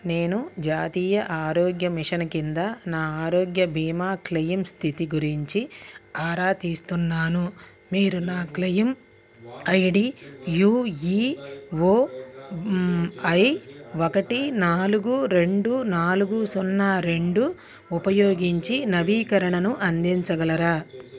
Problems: background conversations at intervals